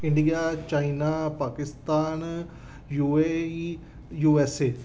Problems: background sounds at intervals